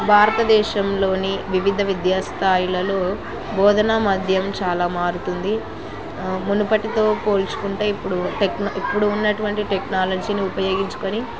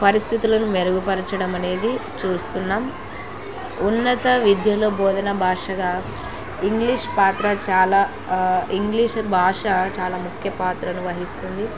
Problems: constant background noise